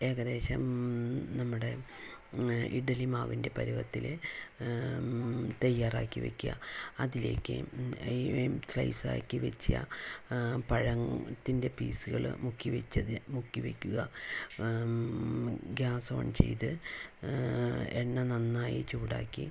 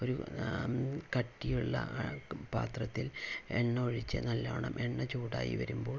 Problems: low volume